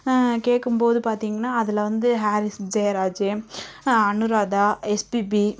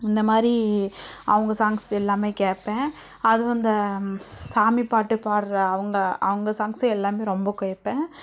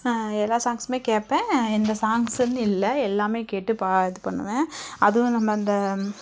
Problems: none marked